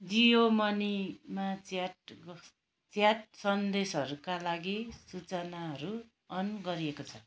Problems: background sounds at intervals